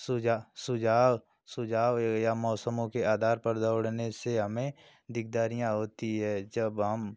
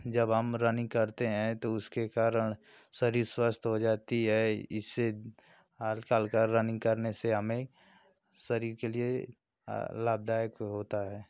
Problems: constant background noise